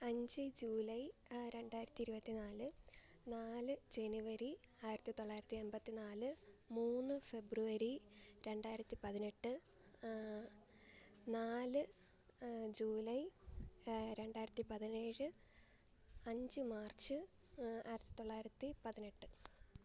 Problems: constant background noise, low volume